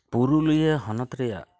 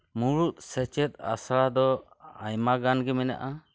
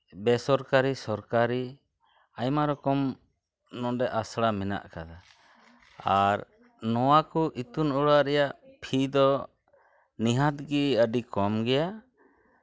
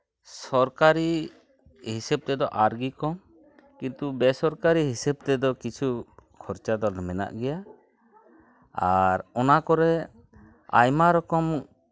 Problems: none marked